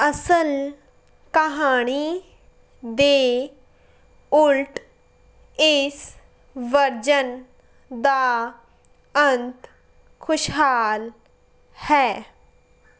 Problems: background sounds at intervals